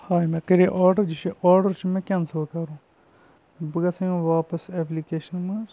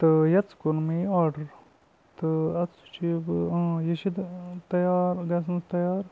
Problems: constant background noise